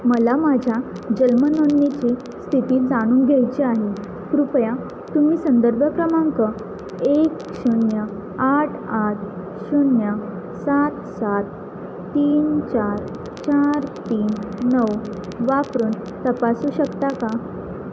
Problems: constant background noise